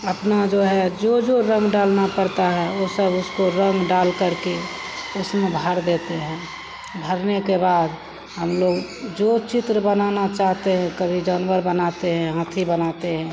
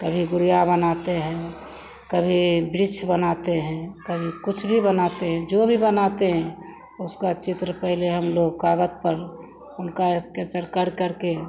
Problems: constant background noise, background conversations at intervals